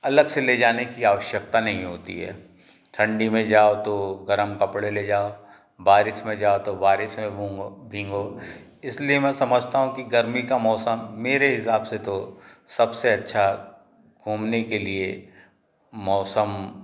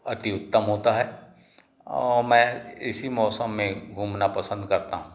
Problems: none marked